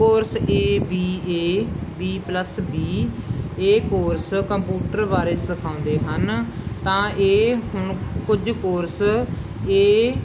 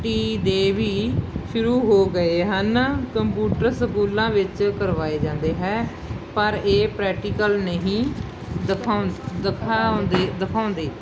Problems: constant background noise